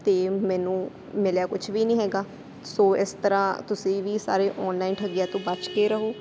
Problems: constant background noise